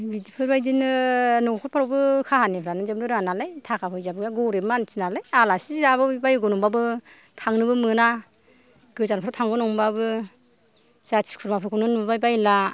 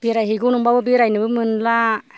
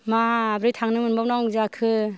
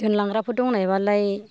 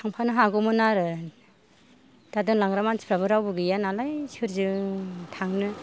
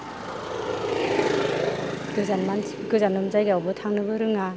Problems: none marked